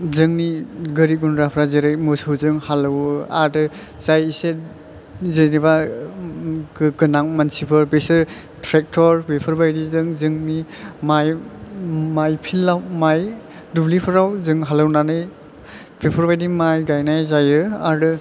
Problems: none marked